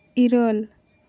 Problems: none marked